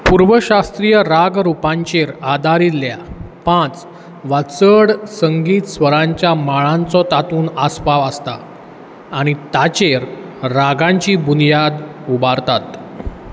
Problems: background sounds at intervals